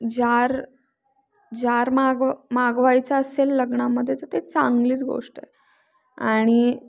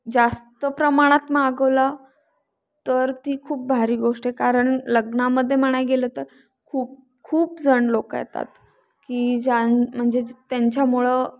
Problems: constant background noise